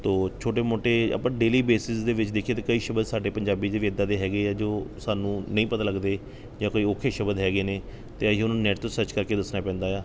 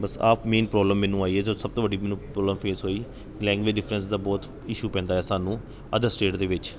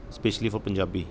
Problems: background sounds at intervals